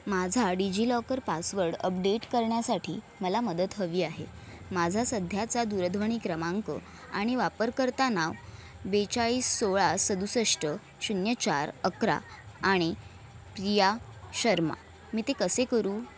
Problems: none marked